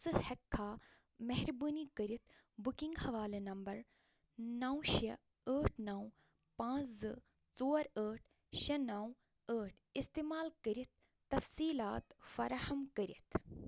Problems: none marked